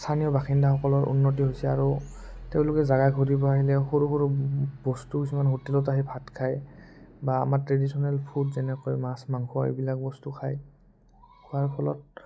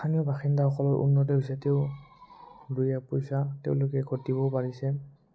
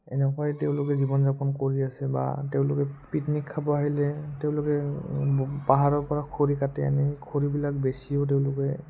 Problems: low volume